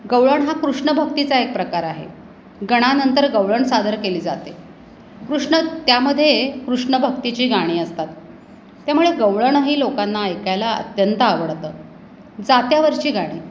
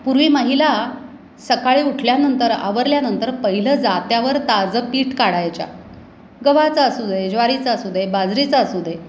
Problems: none marked